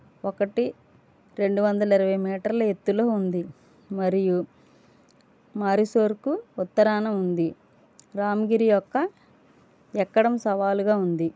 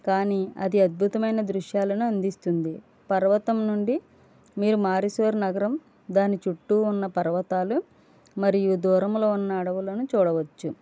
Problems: none marked